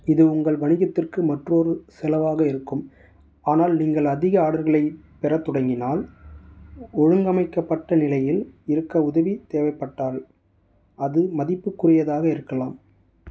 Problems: none marked